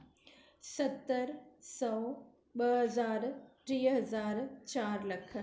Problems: none marked